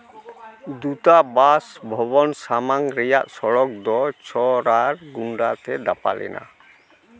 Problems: constant background noise, background conversations at intervals